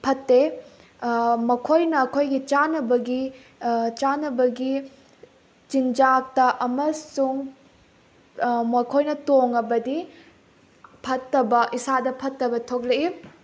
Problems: constant background noise